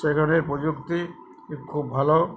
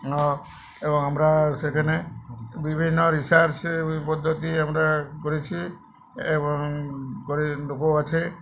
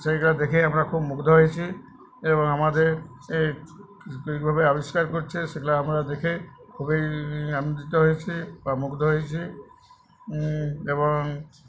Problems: background conversations at intervals